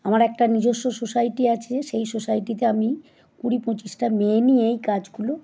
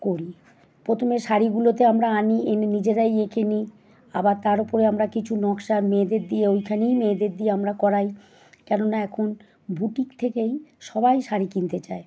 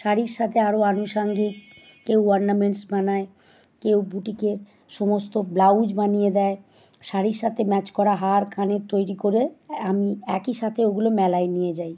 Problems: none marked